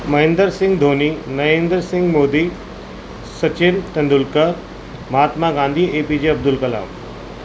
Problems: constant background noise